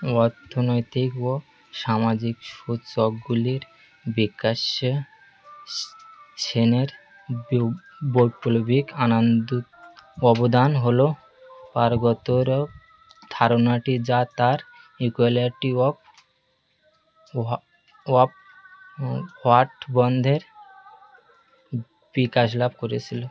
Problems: constant background noise